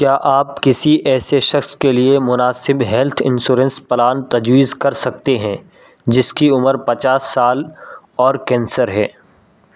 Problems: none marked